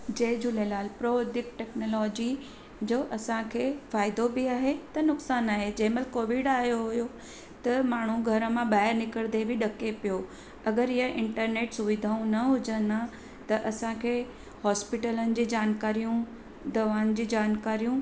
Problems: constant background noise, echo